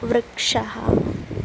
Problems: background sounds at intervals